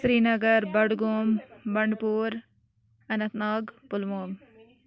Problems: background sounds at intervals